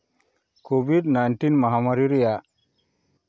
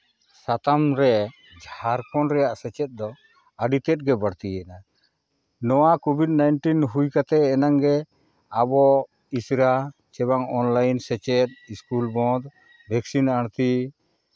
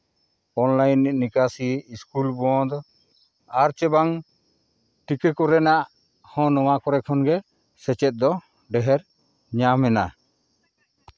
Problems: none marked